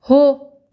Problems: none marked